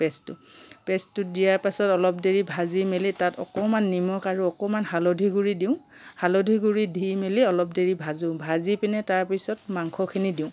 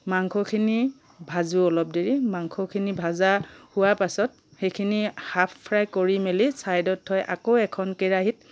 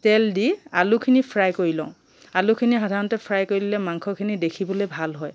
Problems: background sounds at intervals